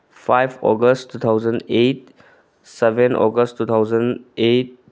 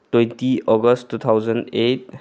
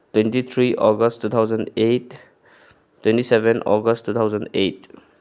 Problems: none marked